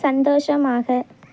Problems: constant background noise